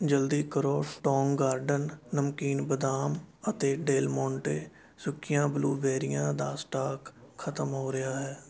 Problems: none marked